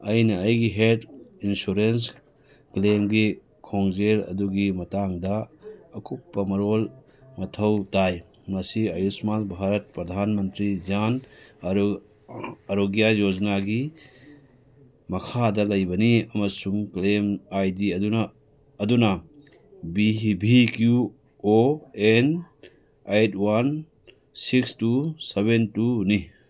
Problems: background sounds at intervals